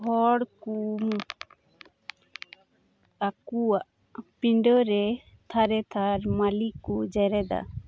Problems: none marked